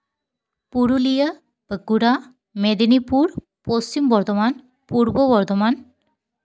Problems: none marked